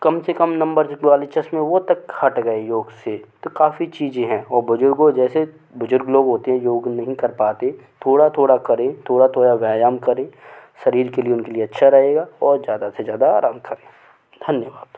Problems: none marked